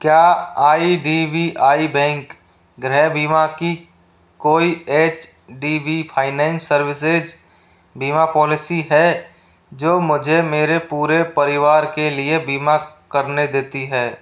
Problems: constant background noise